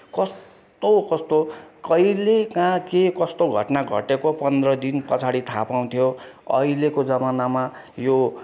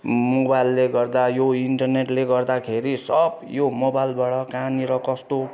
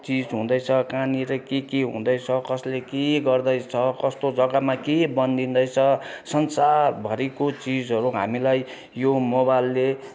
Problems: constant background noise